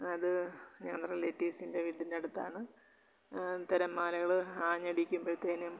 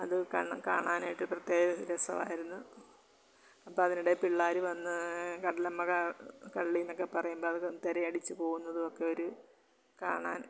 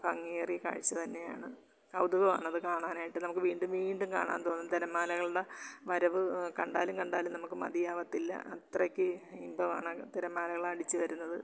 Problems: low volume